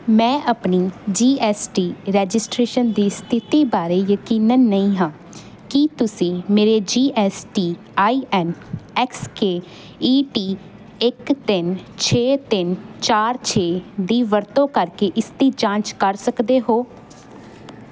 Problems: none marked